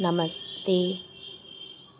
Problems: constant background noise